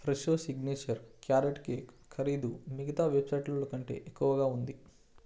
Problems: low volume